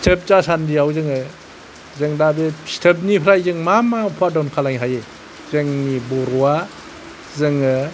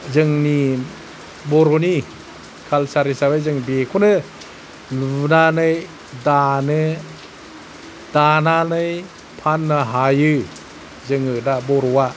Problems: none marked